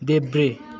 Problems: continuous background conversations